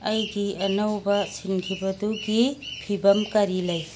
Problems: background sounds at intervals